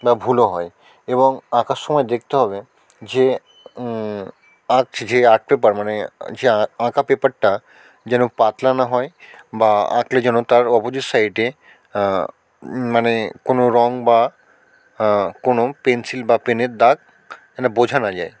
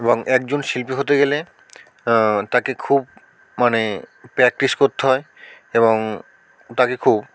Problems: constant background noise